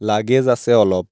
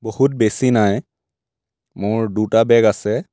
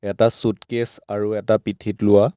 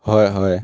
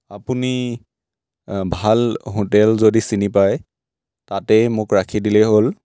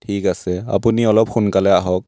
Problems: none marked